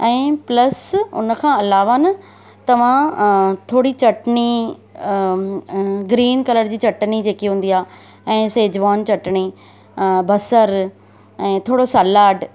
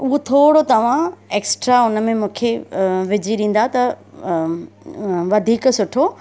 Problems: constant background noise